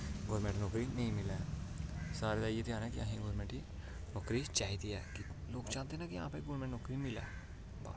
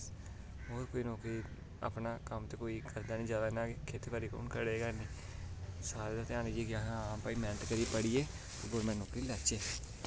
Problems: constant background noise